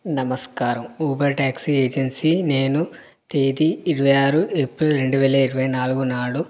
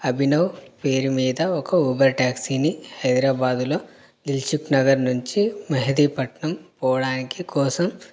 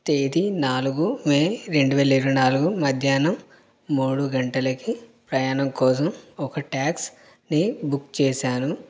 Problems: none marked